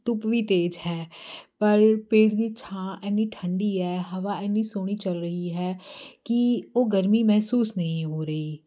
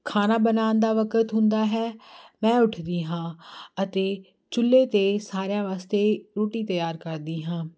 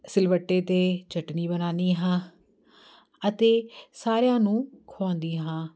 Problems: constant background noise